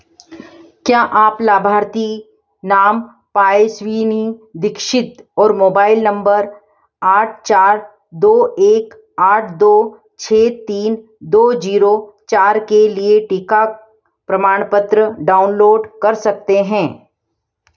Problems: none marked